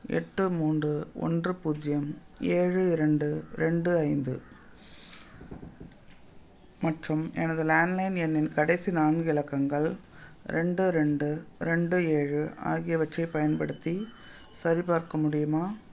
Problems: background sounds at intervals